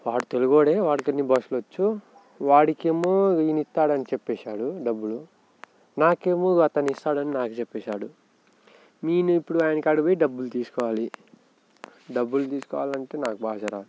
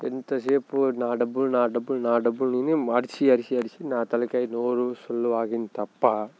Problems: background sounds at intervals